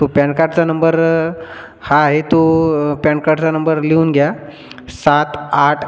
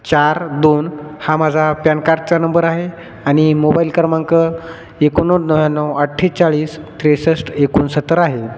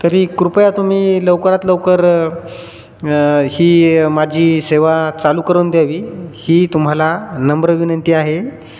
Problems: none marked